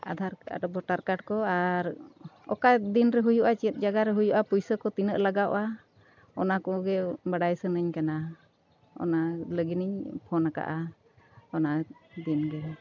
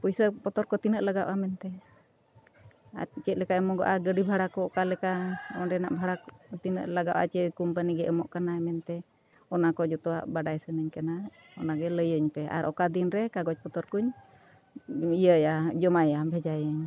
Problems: constant background noise